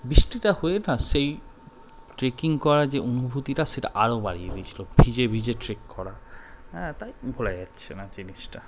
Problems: none marked